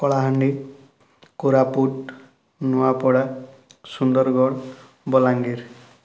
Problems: none marked